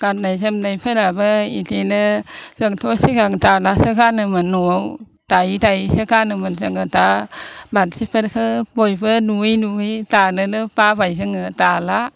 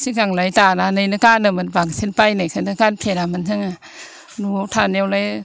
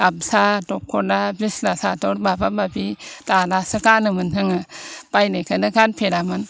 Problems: constant background noise